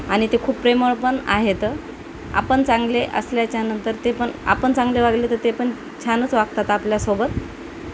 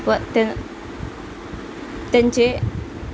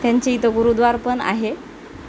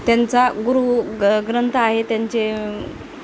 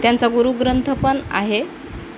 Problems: constant background noise